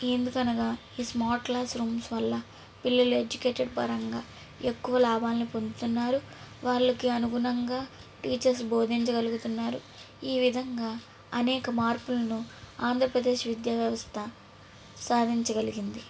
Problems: background sounds at intervals